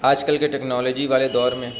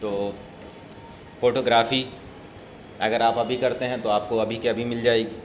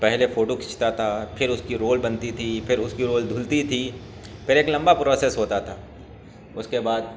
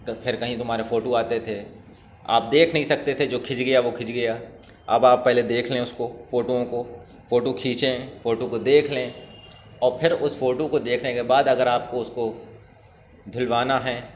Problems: none marked